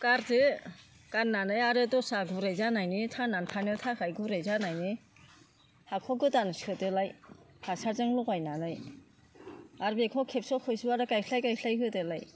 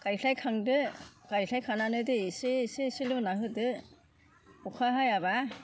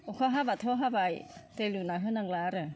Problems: constant background noise